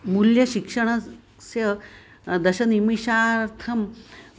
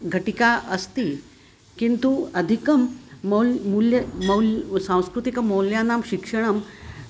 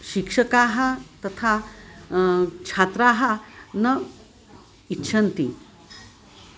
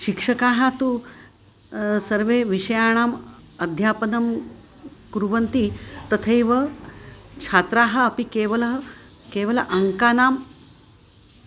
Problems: constant background noise